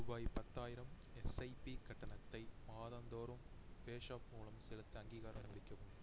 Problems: low volume